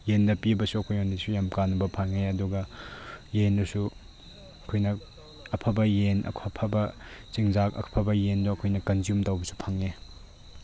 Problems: none marked